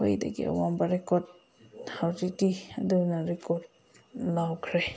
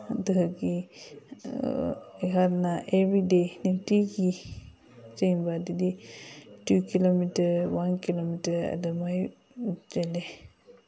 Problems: background conversations at intervals